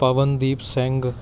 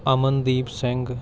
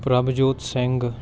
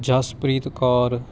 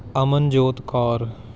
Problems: background sounds at intervals, continuous background conversations